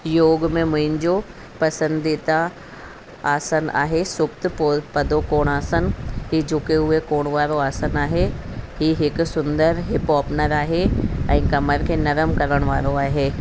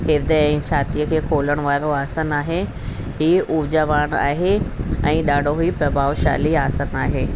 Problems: constant background noise